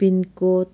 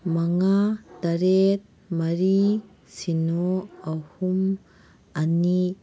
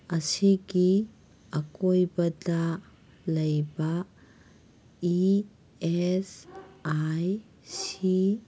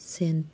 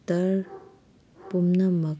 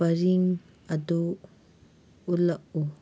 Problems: background sounds at intervals